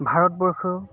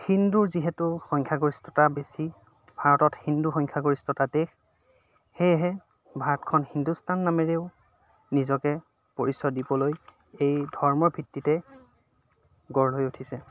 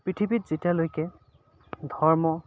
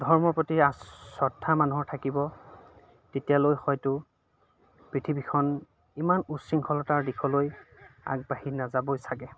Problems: constant background noise, background conversations at intervals